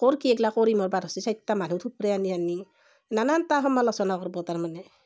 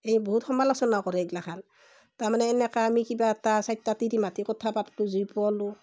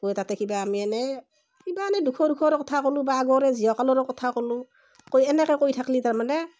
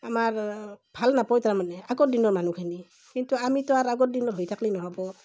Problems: none marked